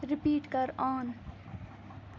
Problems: constant background noise